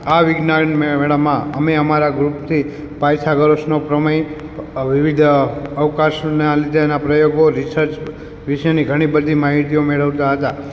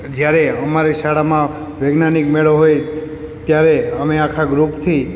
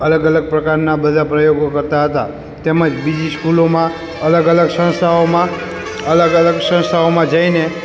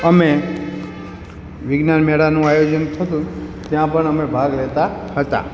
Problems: background sounds at intervals